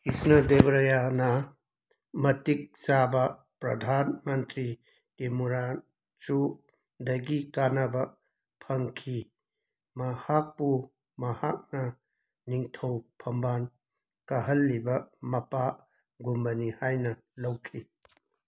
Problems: background sounds at intervals